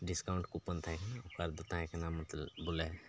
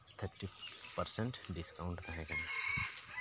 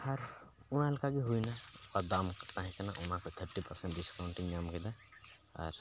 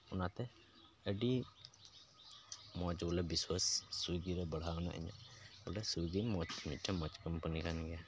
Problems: constant background noise